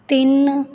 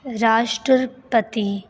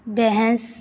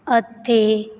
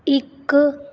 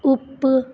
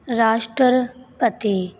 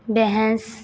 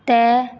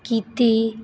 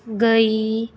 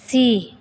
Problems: constant background noise